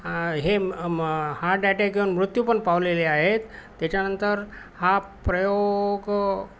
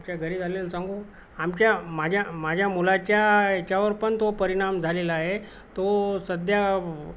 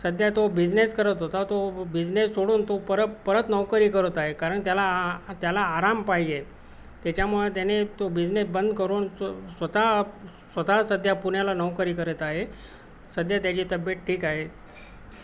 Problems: constant background noise